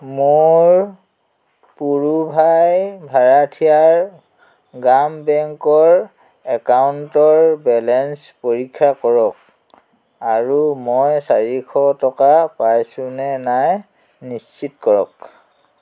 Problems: constant background noise